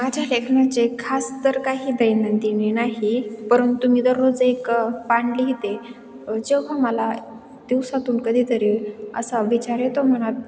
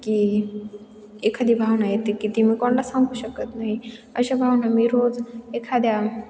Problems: none marked